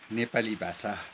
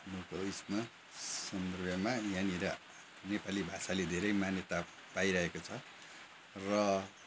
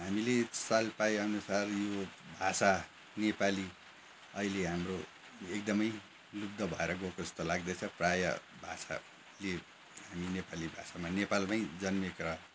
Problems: background sounds at intervals